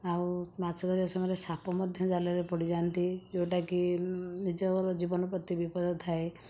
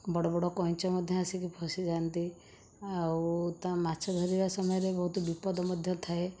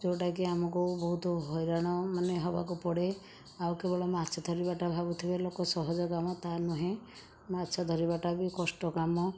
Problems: background sounds at intervals